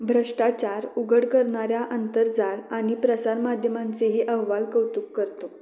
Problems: none marked